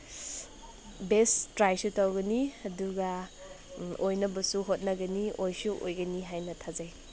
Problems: none marked